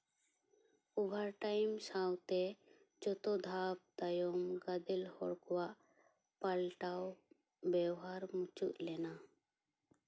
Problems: none marked